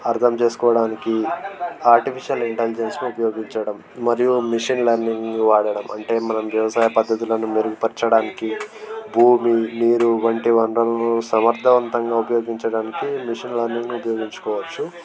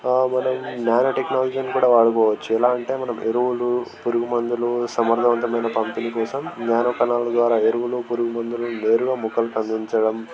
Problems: constant background noise, continuous background conversations